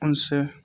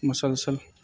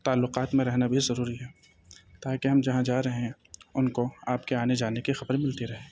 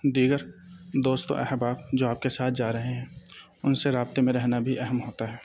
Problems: background sounds at intervals